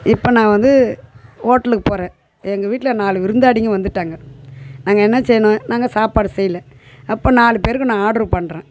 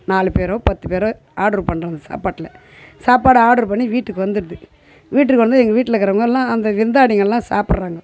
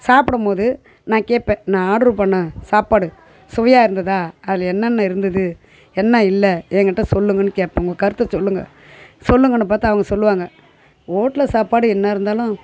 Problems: none marked